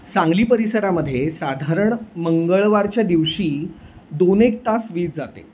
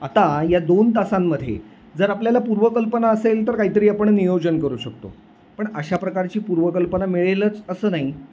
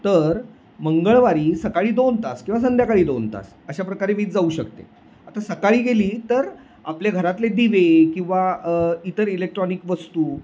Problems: none marked